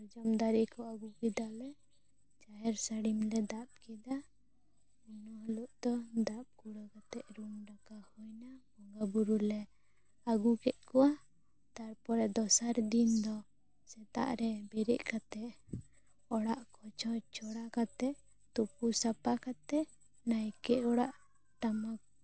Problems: low volume